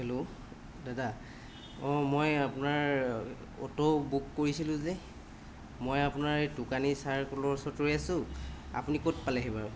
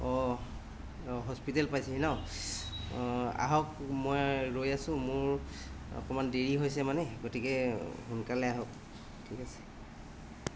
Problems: constant background noise